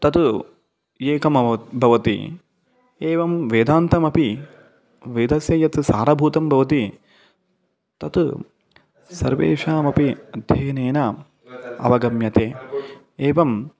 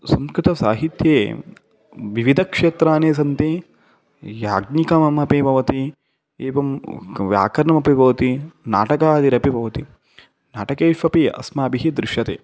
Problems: background sounds at intervals